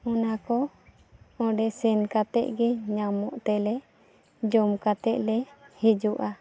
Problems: background sounds at intervals